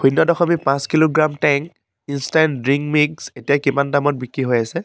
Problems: none marked